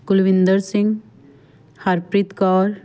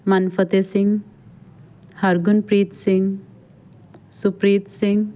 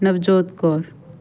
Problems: none marked